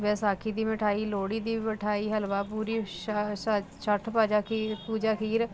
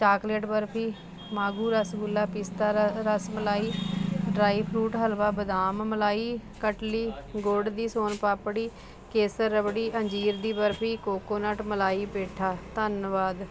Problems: constant background noise